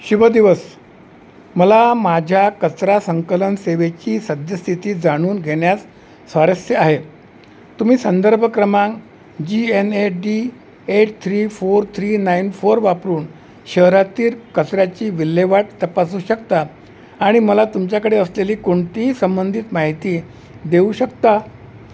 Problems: constant background noise